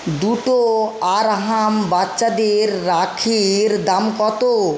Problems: constant background noise